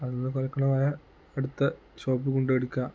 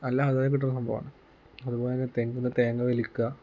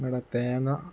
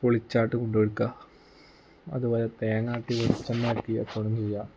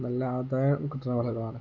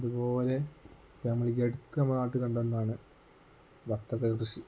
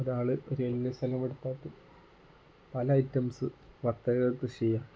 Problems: low volume